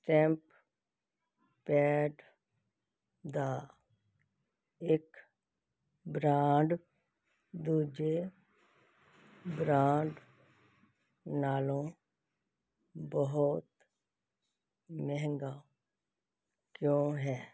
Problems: background sounds at intervals